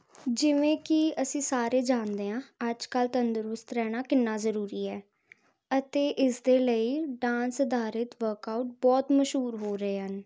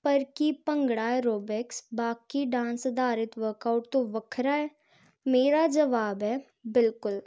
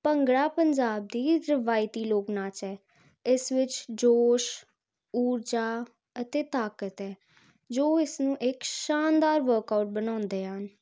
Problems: constant background noise